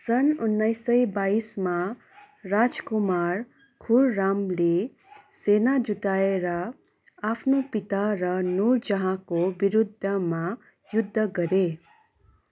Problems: constant background noise